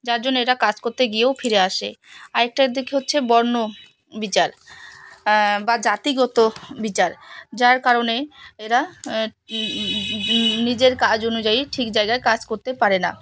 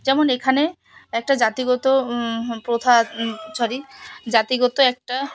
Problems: constant background noise